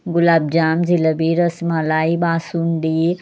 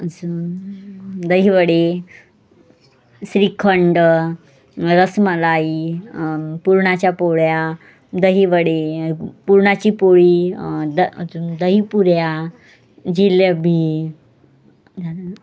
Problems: background sounds at intervals, background conversations at intervals